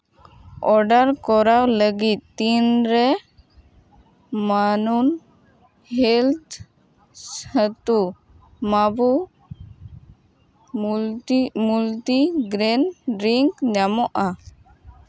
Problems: none marked